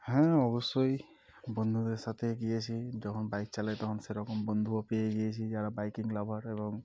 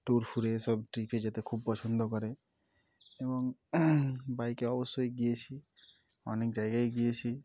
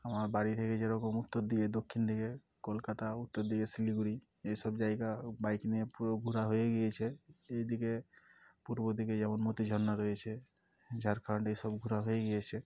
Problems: none marked